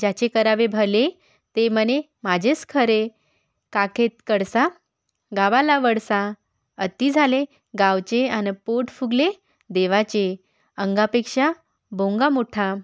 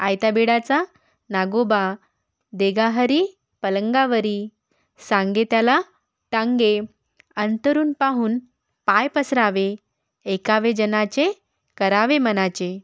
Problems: background sounds at intervals